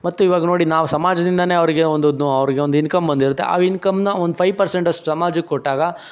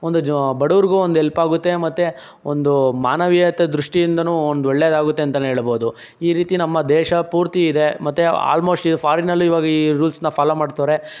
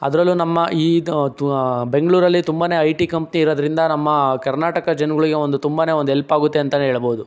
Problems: none marked